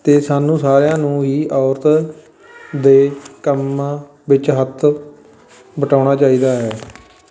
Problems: background sounds at intervals, continuous background conversations